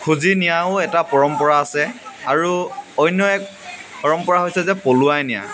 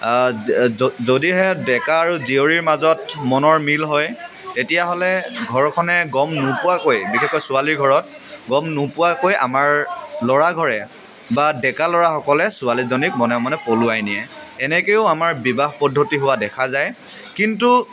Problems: none marked